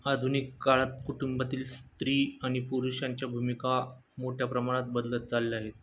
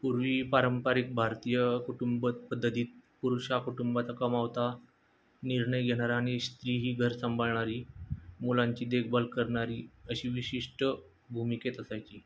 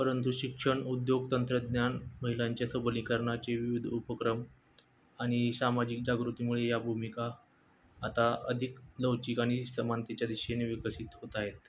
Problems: constant background noise